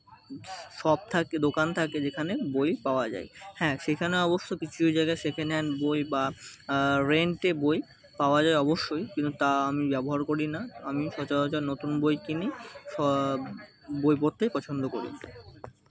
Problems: constant background noise, continuous background conversations